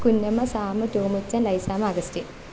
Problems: constant background noise